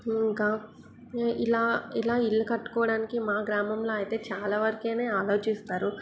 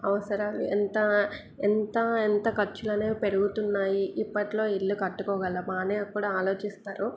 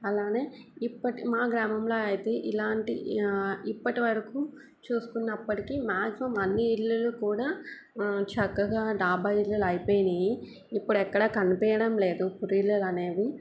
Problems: background sounds at intervals